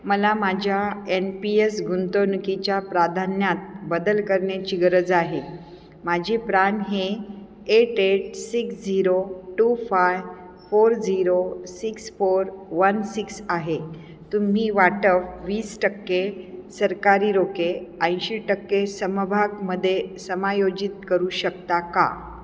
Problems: constant background noise, echo